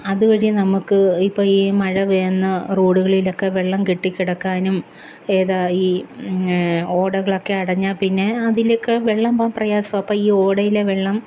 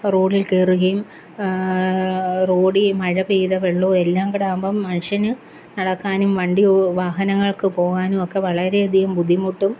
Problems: none marked